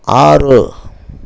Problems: constant background noise